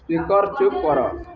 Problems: constant background noise, continuous background conversations